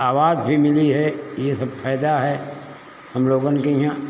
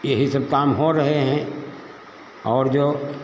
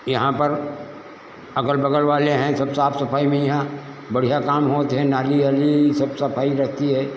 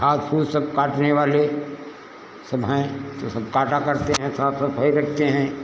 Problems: constant background noise